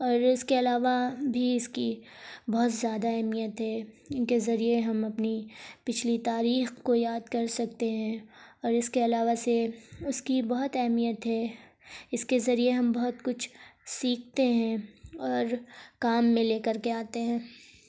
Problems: constant background noise